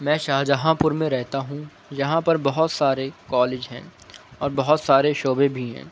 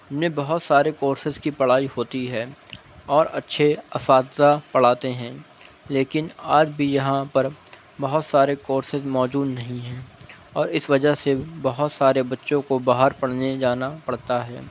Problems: none marked